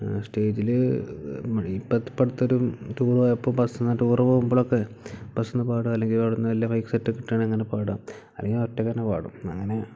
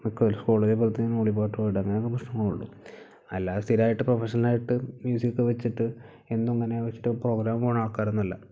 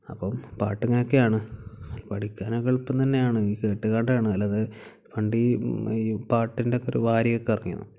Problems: low volume